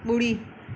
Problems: none marked